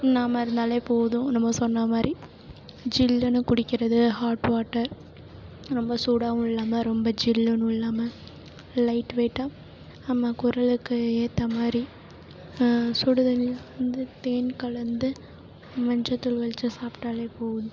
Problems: low volume